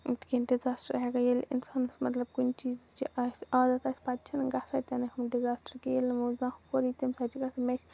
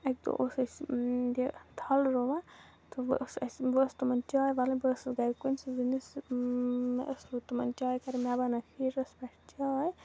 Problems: low volume